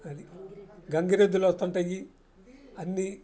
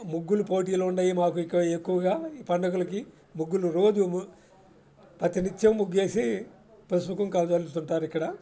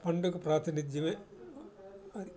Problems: constant background noise